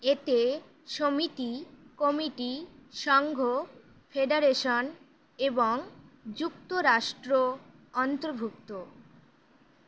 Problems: constant background noise